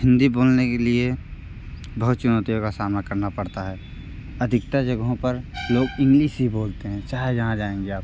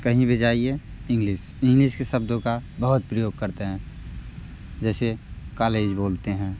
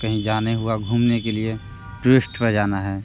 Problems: constant background noise